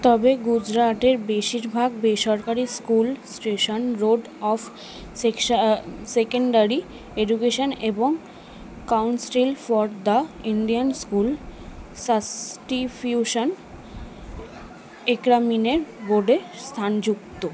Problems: continuous background conversations